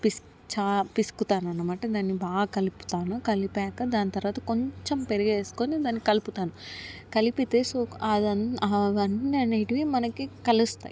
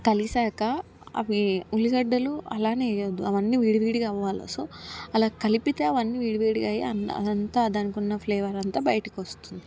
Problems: background sounds at intervals, background conversations at intervals